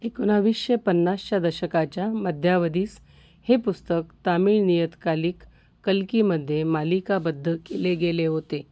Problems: constant background noise